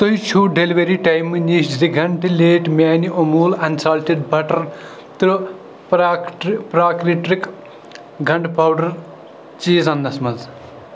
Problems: constant background noise